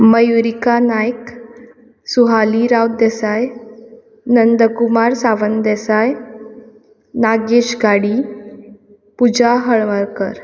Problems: none marked